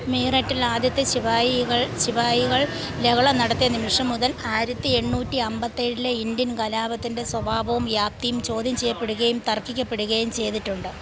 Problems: constant background noise, background conversations at intervals